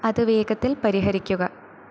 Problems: constant background noise